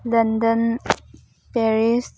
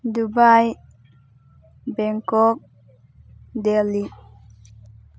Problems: background sounds at intervals